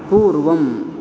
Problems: none marked